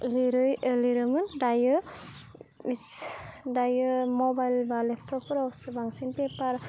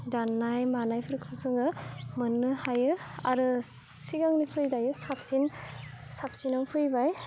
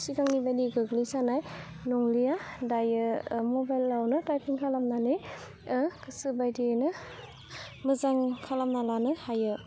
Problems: low volume